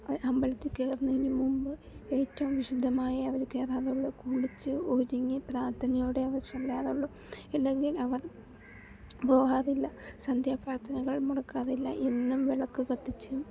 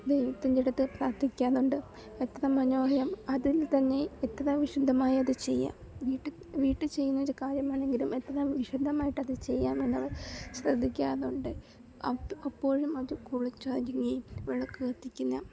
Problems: none marked